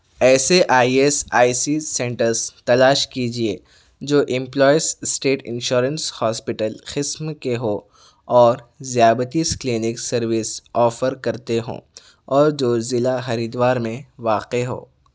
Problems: none marked